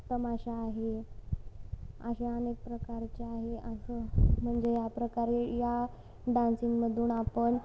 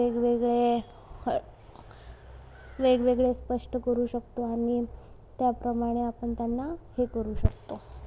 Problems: background sounds at intervals, low volume